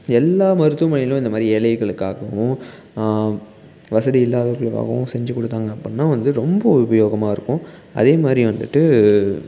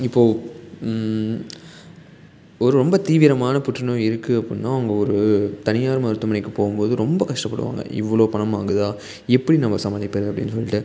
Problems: none marked